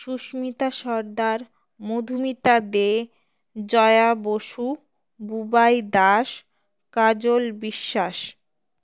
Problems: background sounds at intervals